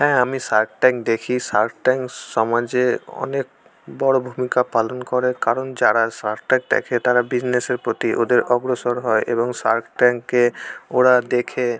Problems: constant background noise, background conversations at intervals